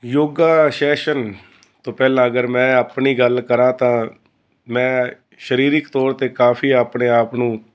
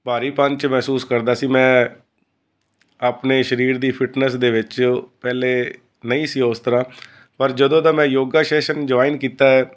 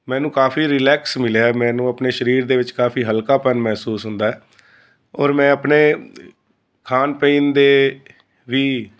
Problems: constant background noise